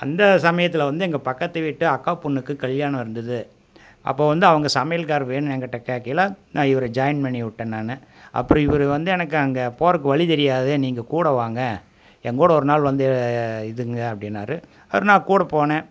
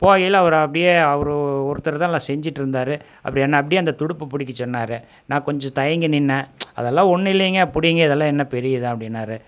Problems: none marked